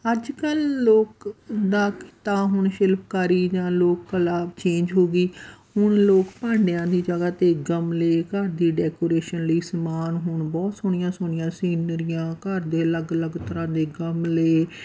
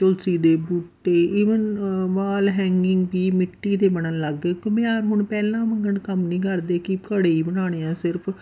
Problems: constant background noise